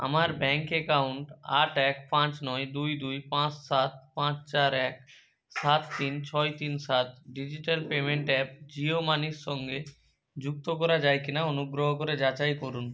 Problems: background sounds at intervals